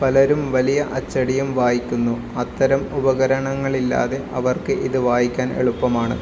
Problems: constant background noise